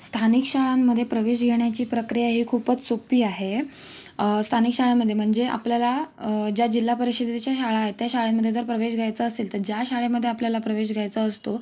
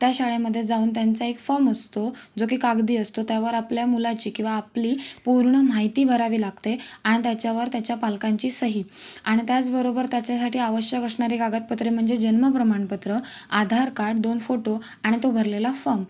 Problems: none marked